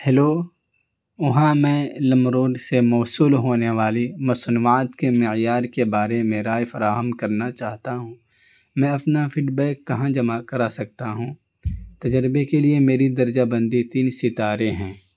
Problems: constant background noise